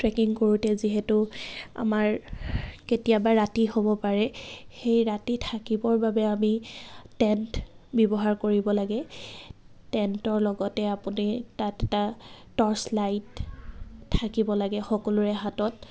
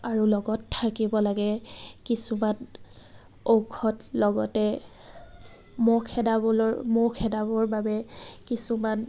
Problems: constant background noise, background conversations at intervals